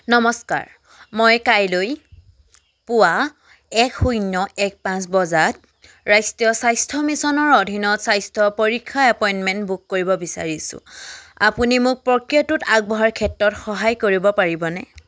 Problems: none marked